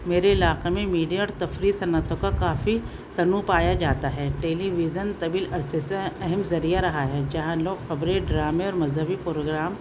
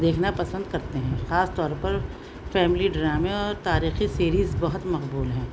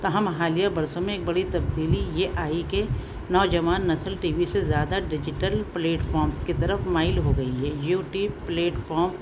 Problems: constant background noise